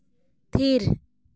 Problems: none marked